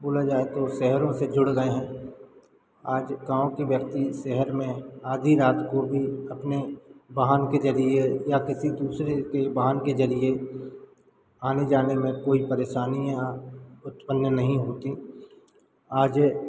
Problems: constant background noise